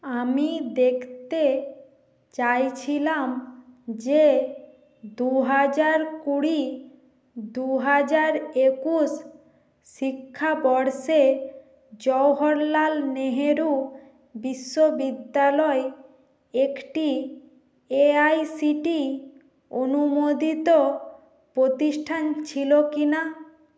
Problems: constant background noise